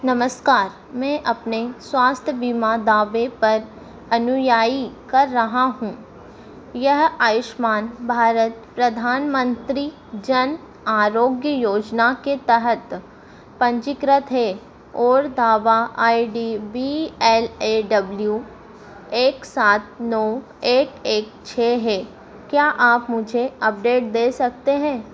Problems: none marked